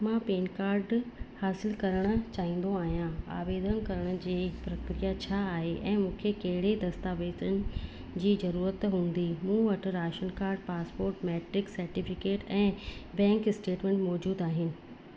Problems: constant background noise